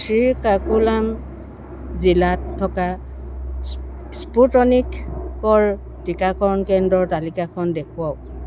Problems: constant background noise